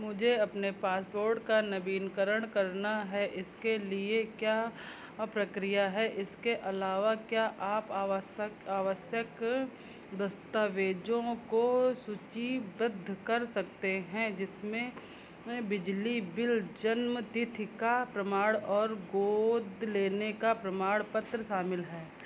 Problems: constant background noise